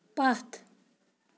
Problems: none marked